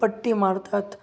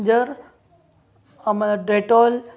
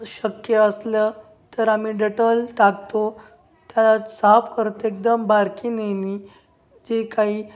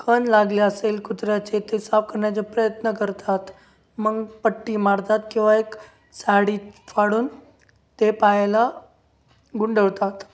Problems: none marked